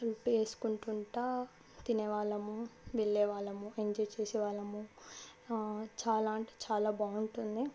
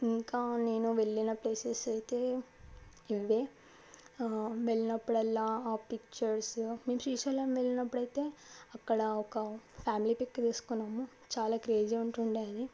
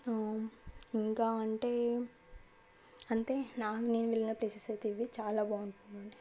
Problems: none marked